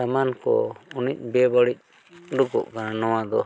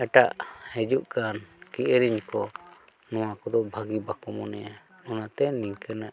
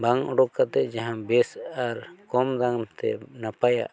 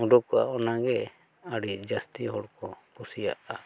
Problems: none marked